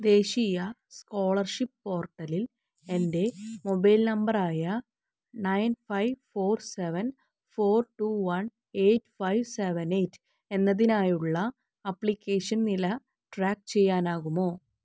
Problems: none marked